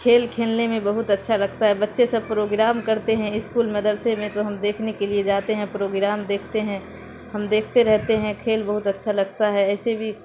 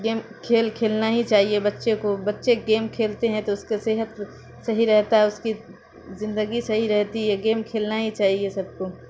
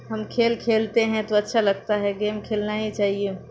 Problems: constant background noise